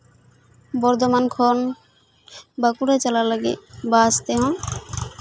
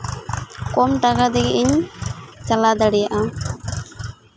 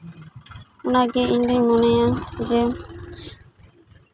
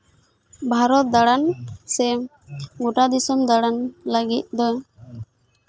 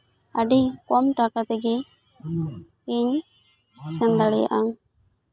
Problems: constant background noise, continuous background conversations